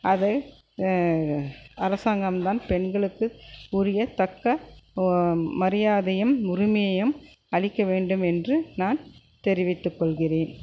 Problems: constant background noise